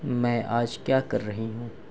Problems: none marked